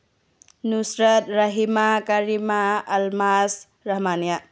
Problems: low volume